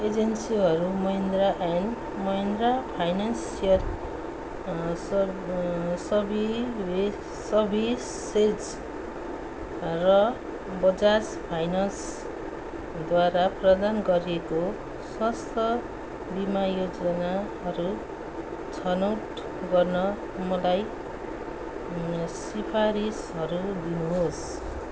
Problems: background sounds at intervals